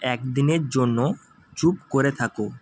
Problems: constant background noise